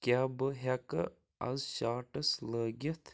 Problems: none marked